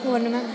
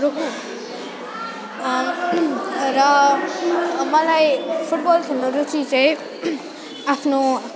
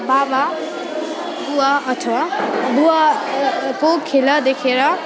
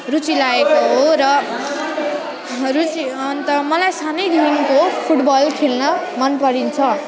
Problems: continuous background conversations